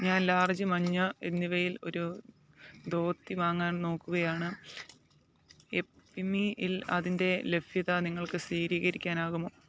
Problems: low volume